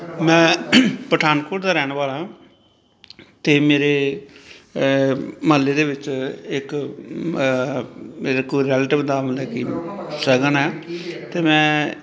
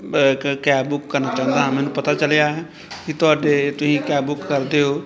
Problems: continuous background conversations